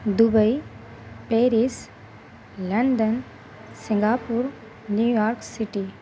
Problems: constant background noise